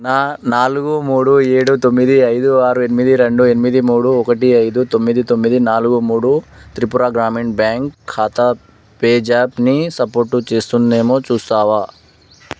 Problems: background sounds at intervals